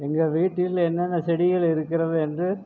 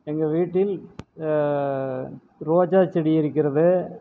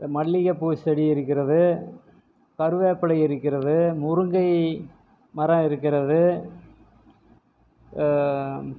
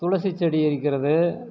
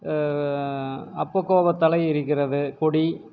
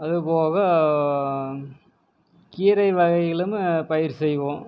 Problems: none marked